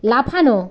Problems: constant background noise